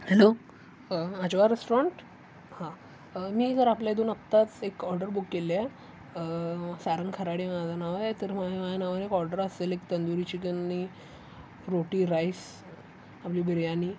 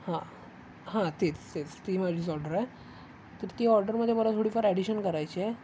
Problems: none marked